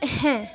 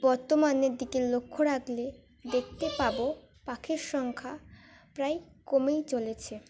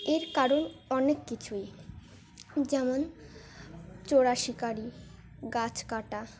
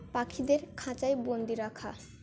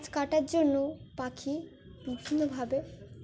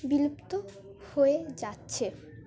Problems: continuous background conversations